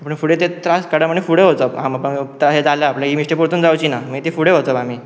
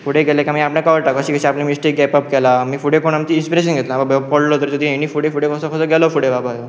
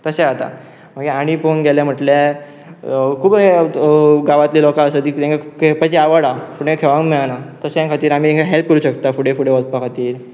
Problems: constant background noise